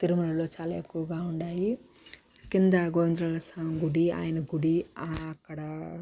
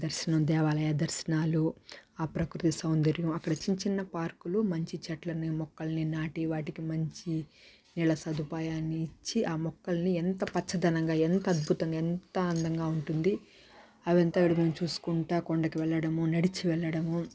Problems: none marked